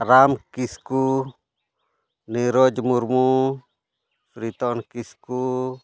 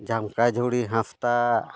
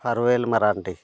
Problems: none marked